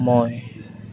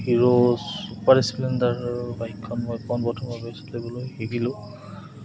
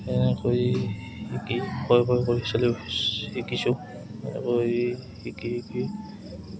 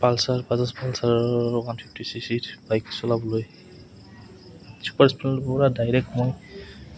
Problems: background sounds at intervals, background conversations at intervals